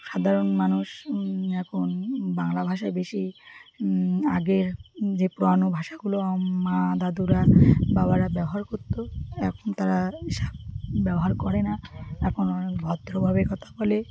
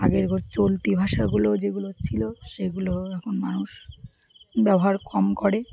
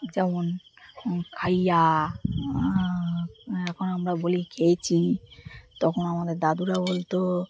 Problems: none marked